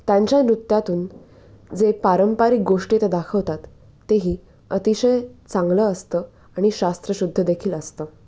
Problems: none marked